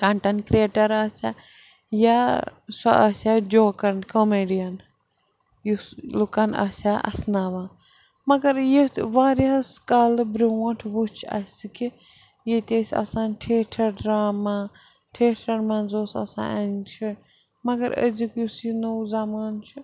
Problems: background sounds at intervals